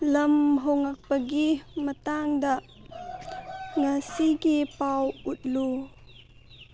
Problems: background sounds at intervals